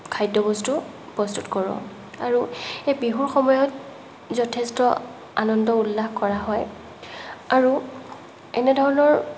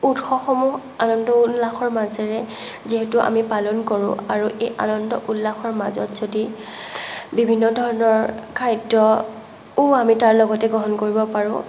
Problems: none marked